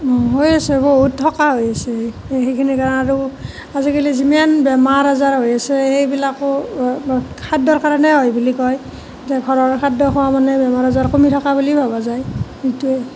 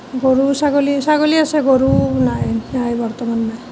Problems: constant background noise